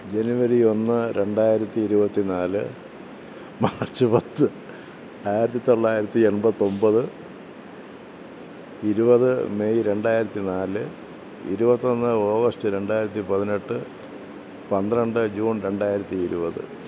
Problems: none marked